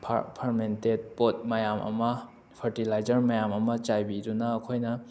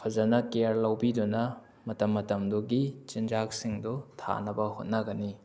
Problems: background sounds at intervals